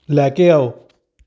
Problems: none marked